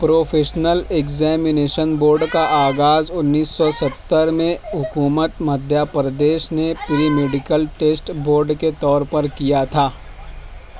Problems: constant background noise